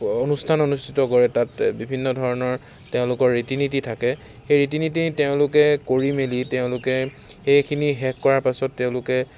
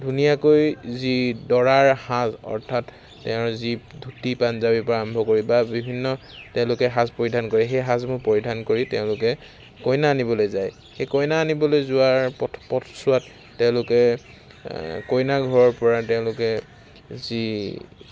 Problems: constant background noise